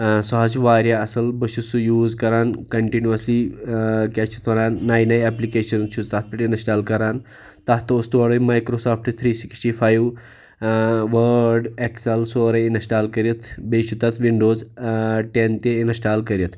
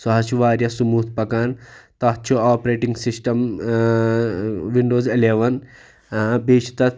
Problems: none marked